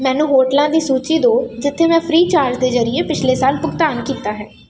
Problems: constant background noise